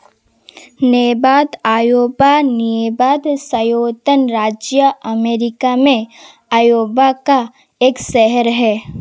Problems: constant background noise